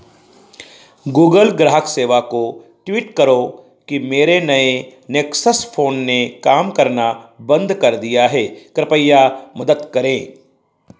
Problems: none marked